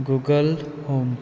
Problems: constant background noise